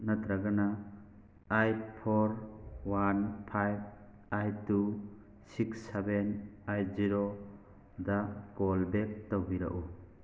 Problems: constant background noise